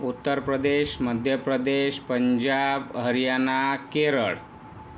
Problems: none marked